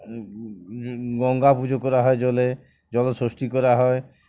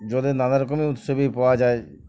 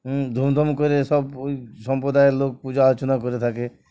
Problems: background sounds at intervals, background conversations at intervals